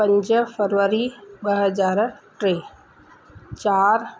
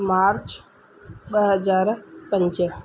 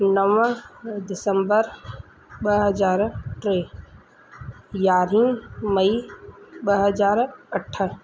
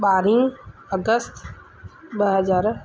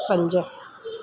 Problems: constant background noise